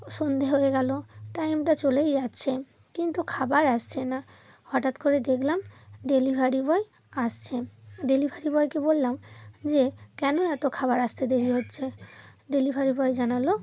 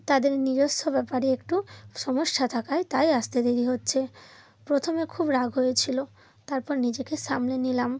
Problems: none marked